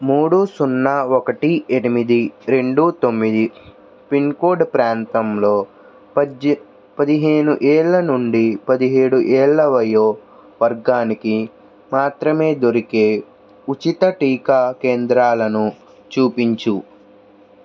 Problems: constant background noise